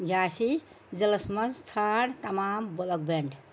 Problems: constant background noise